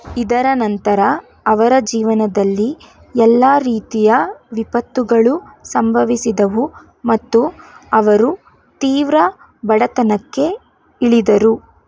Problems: background sounds at intervals